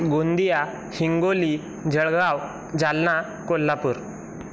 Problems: constant background noise